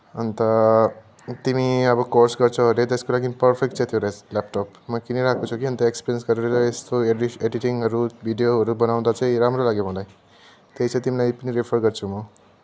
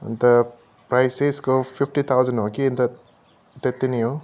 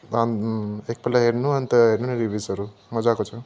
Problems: constant background noise, continuous background conversations